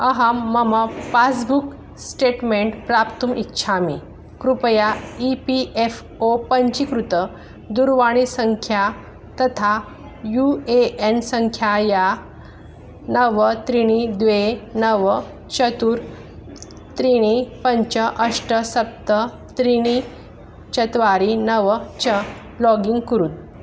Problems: constant background noise